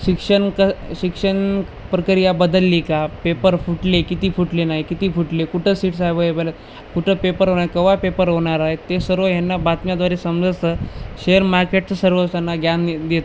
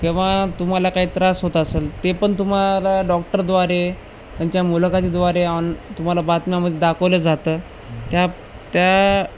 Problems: constant background noise